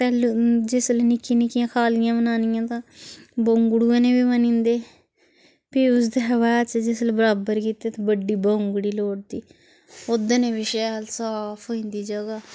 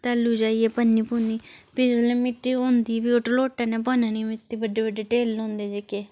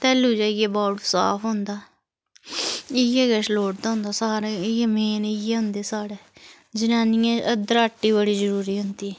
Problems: background sounds at intervals